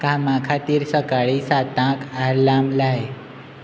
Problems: none marked